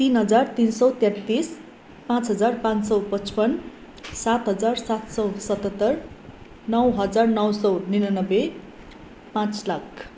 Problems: none marked